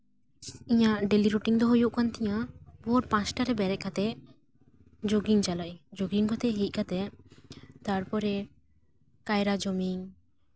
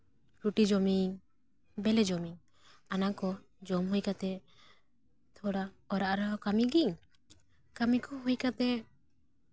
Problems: background sounds at intervals